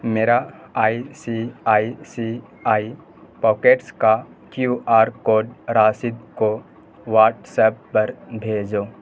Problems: constant background noise